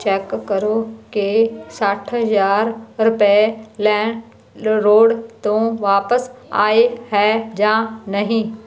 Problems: none marked